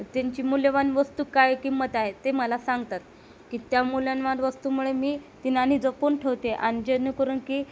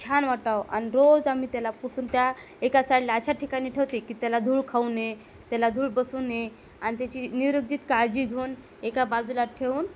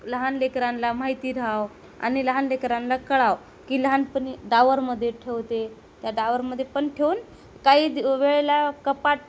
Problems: none marked